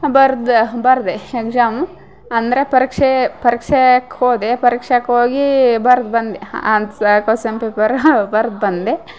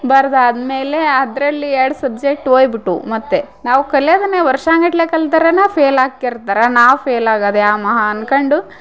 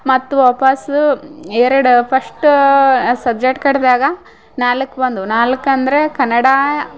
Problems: background sounds at intervals